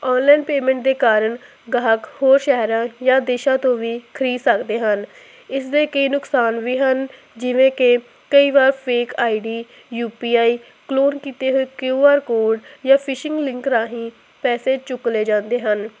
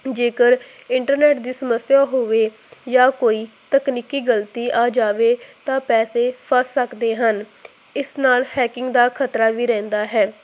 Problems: constant background noise